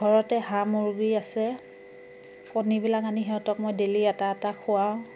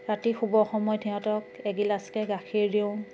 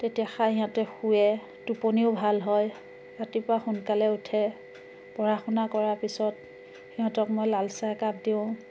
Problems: constant background noise